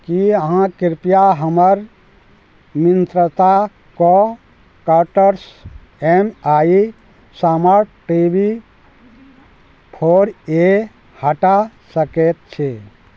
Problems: none marked